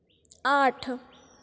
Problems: constant background noise, echo